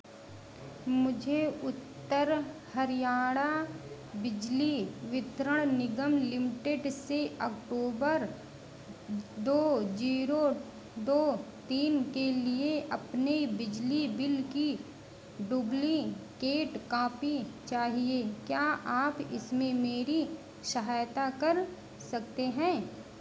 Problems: none marked